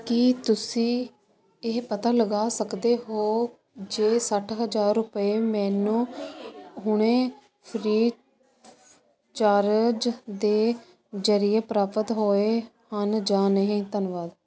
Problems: constant background noise